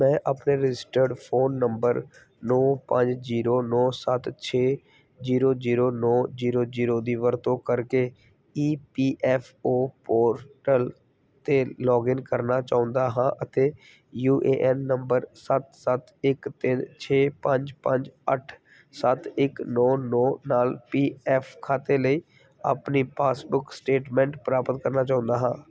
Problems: background sounds at intervals